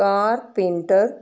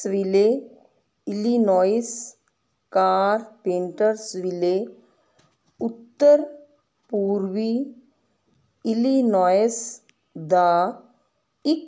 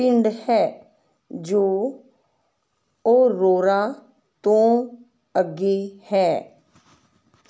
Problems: none marked